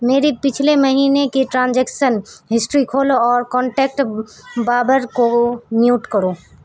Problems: background sounds at intervals